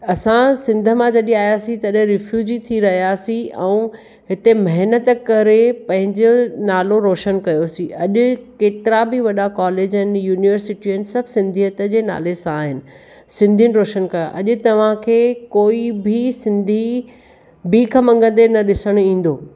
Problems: none marked